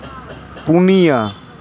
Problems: constant background noise